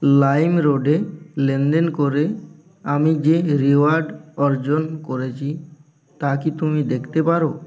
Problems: continuous background conversations